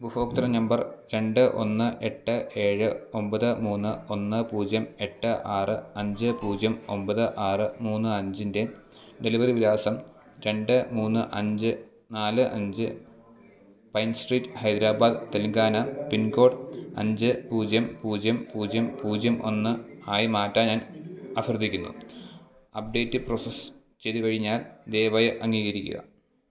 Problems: background sounds at intervals